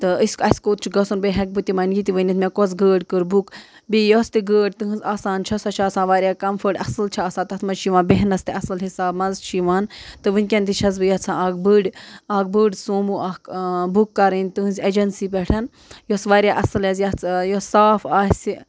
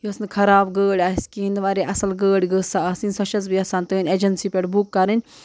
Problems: constant background noise